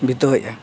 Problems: background sounds at intervals